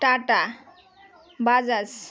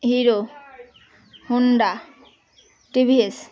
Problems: constant background noise, background conversations at intervals